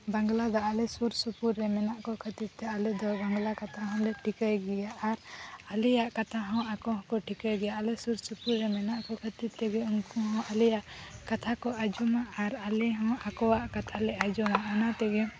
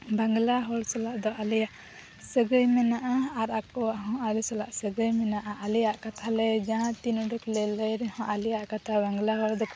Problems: constant background noise